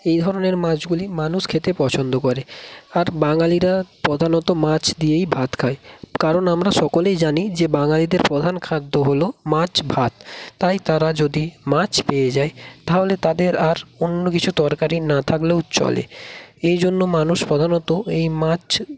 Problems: none marked